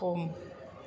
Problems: constant background noise